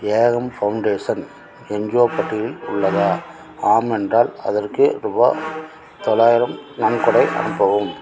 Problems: none marked